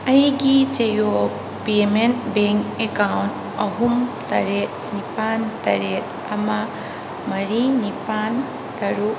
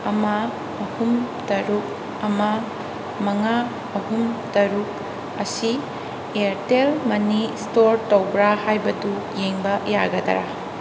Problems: constant background noise